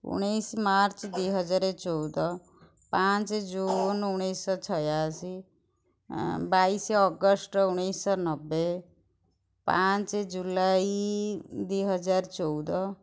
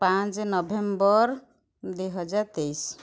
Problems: background sounds at intervals